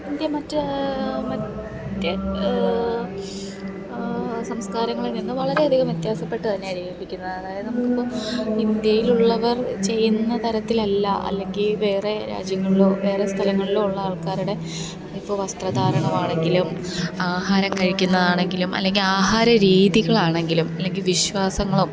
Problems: constant background noise